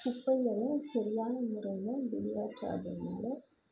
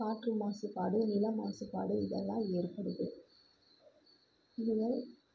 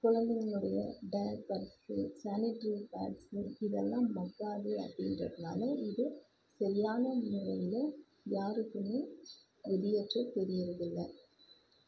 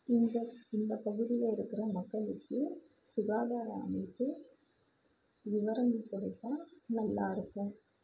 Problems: constant background noise, low volume